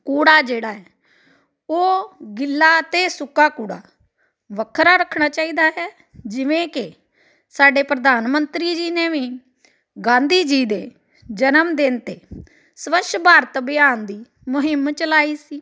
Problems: none marked